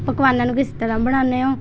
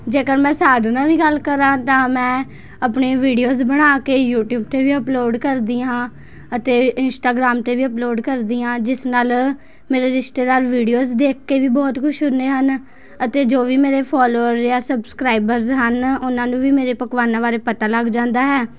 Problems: constant background noise, continuous background conversations